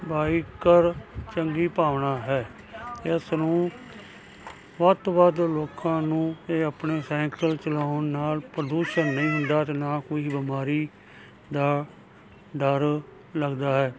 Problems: constant background noise